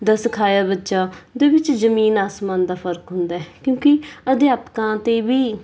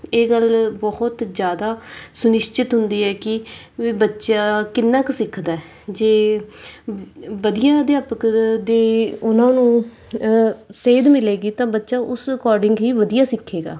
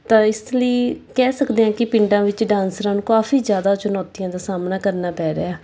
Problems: background sounds at intervals